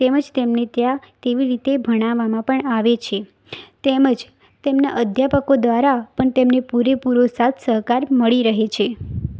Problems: constant background noise